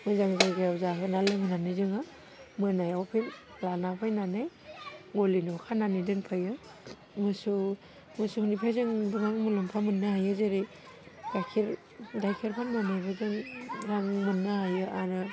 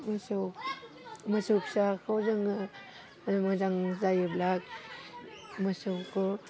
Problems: none marked